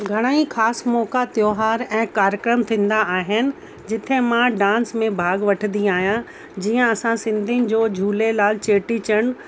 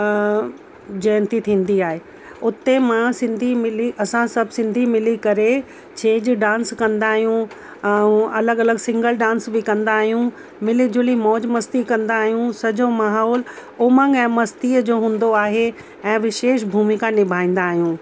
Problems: constant background noise